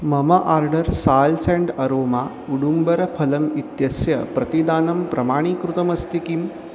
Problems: constant background noise